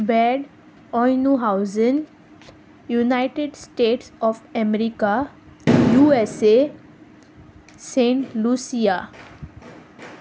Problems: constant background noise